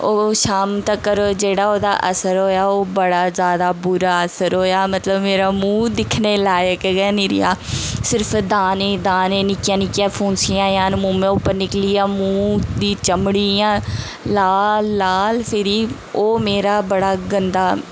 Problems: constant background noise